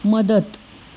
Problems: background sounds at intervals